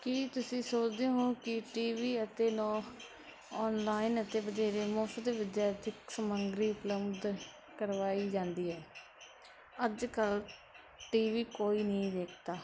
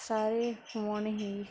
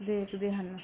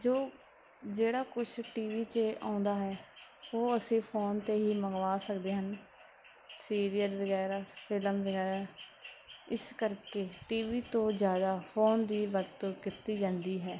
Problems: constant background noise